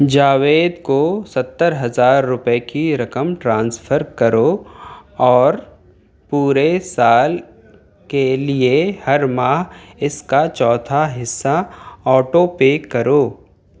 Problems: none marked